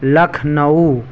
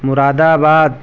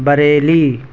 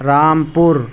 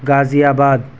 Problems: constant background noise